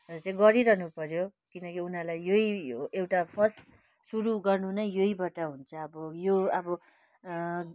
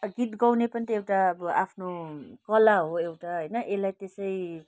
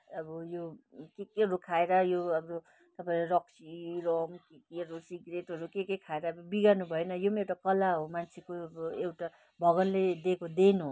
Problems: none marked